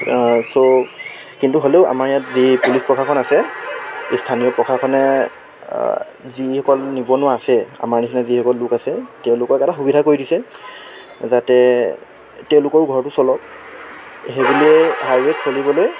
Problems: constant background noise